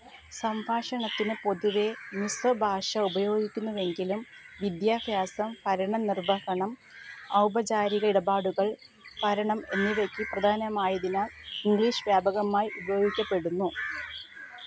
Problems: background sounds at intervals, low volume